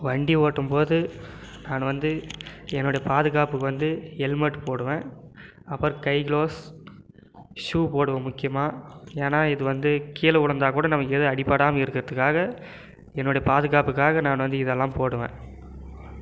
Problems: none marked